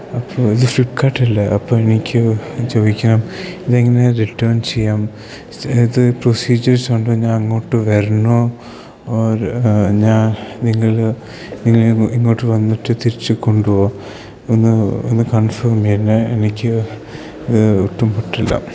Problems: low volume